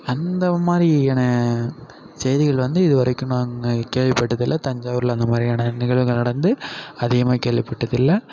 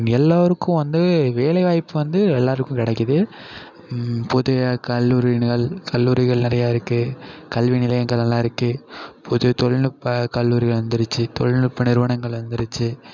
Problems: constant background noise, echo